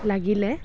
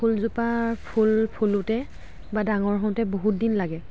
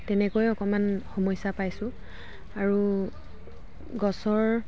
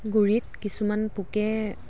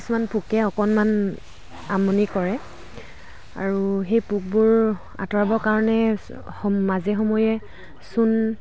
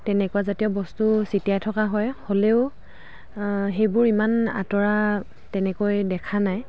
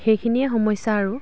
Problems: constant background noise